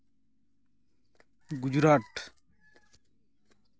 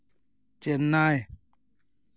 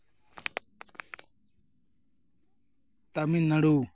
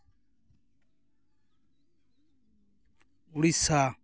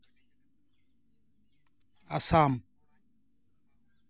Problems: none marked